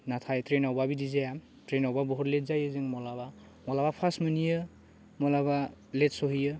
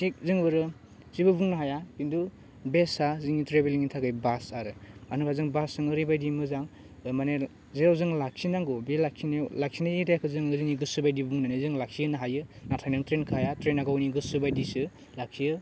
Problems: none marked